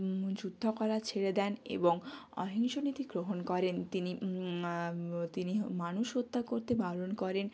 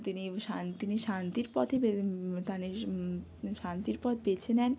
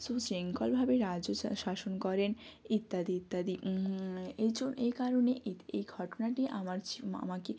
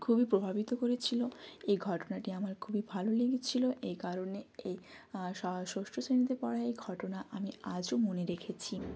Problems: none marked